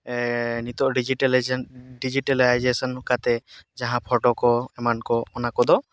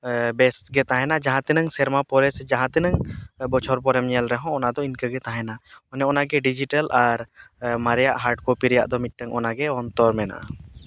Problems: none marked